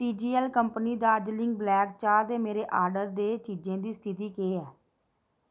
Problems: none marked